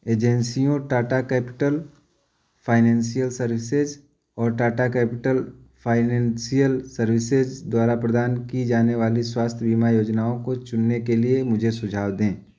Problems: none marked